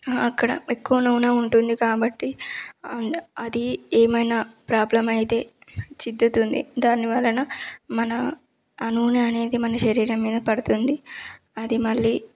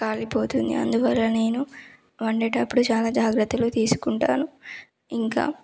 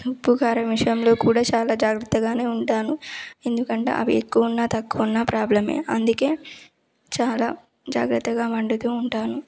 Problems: none marked